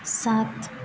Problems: low volume